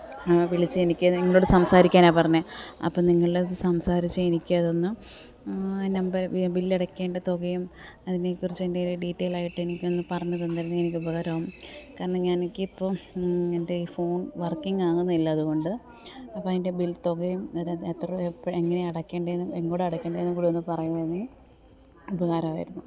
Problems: low volume